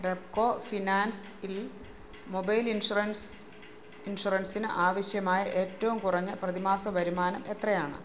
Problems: background sounds at intervals